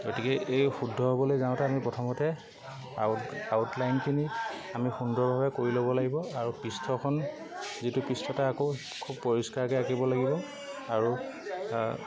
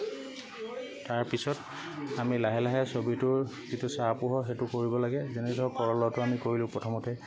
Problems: constant background noise, background conversations at intervals